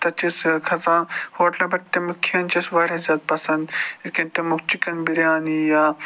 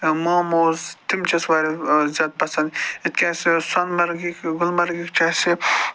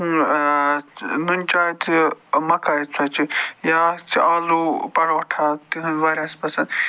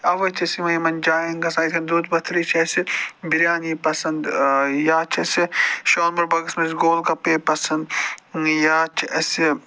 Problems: none marked